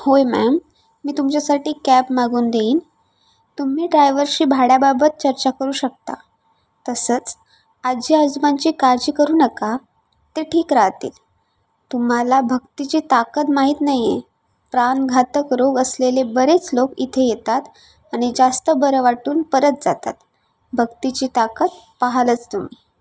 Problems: constant background noise